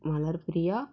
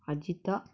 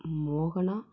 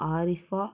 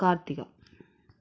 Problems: low volume